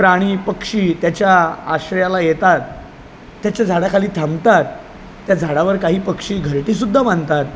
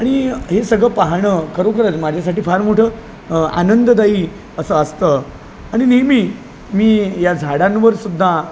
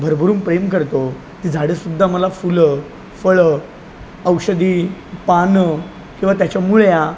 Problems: none marked